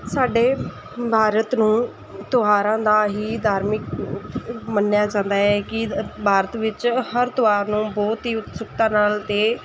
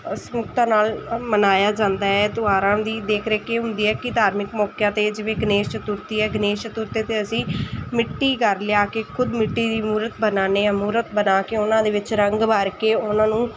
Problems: none marked